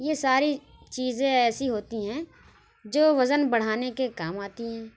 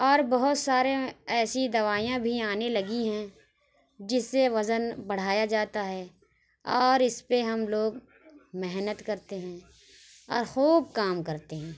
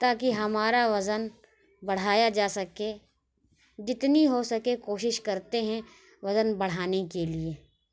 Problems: none marked